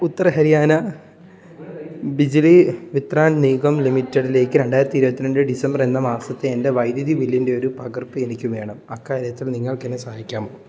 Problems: none marked